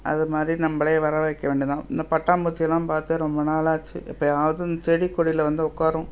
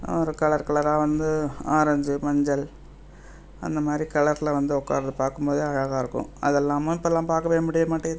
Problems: background sounds at intervals